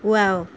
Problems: constant background noise